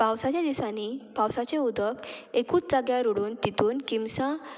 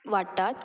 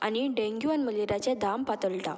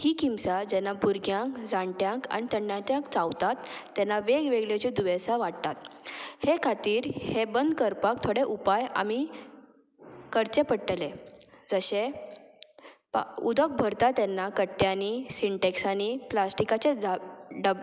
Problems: background sounds at intervals, background conversations at intervals